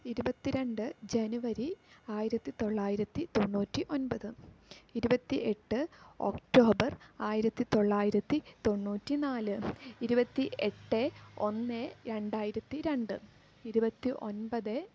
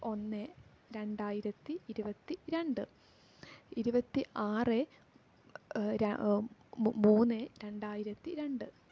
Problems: low volume